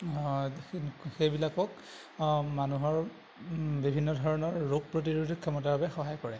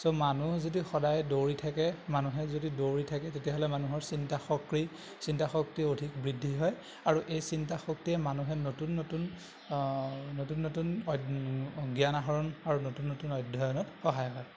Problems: constant background noise